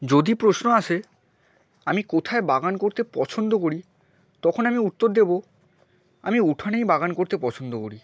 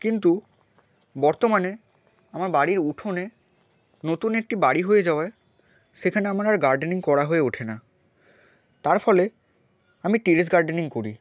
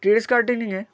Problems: none marked